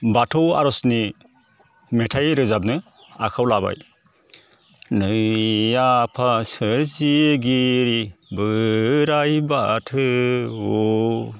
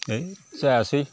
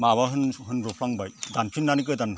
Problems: constant background noise